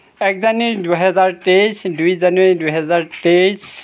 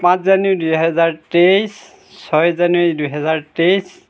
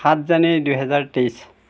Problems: background sounds at intervals